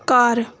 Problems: background sounds at intervals